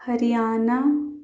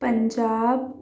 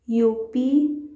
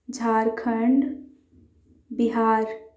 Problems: background sounds at intervals